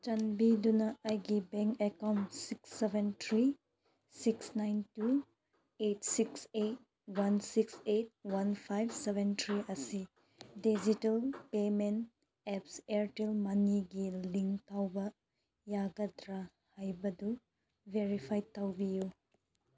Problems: none marked